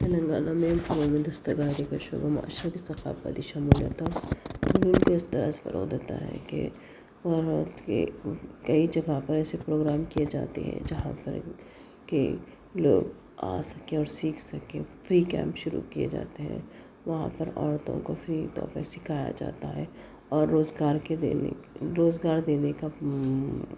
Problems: constant background noise, low volume